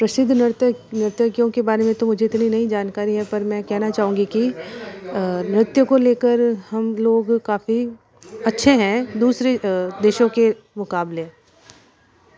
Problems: constant background noise